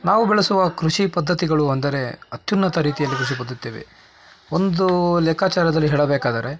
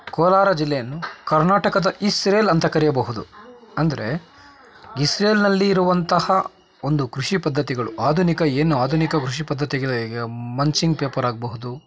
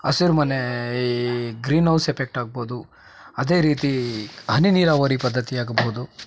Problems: constant background noise